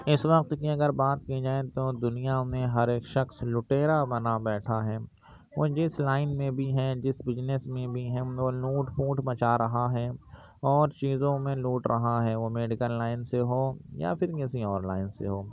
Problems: constant background noise, low volume